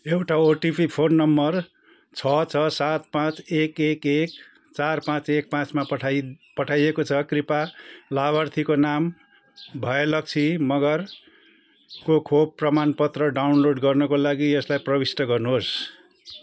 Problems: constant background noise